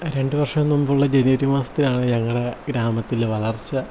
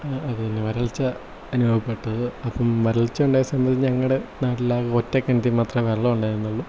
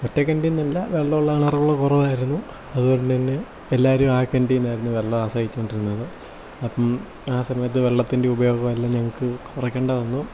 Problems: low volume